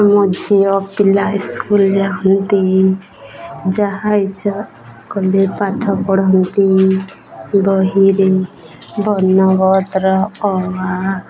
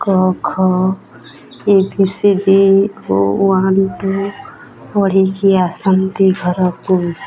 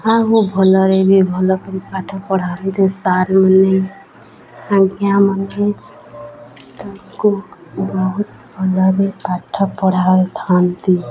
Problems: constant background noise, continuous background conversations